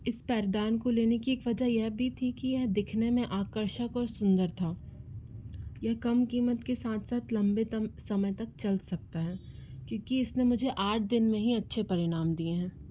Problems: none marked